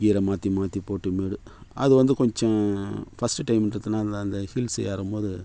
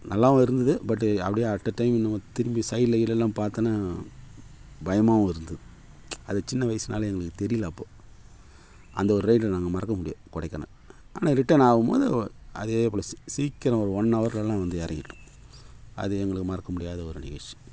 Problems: none marked